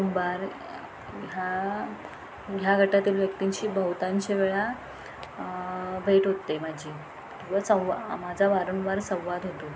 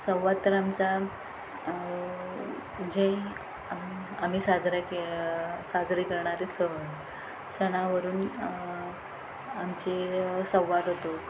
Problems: constant background noise, background conversations at intervals